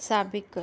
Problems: none marked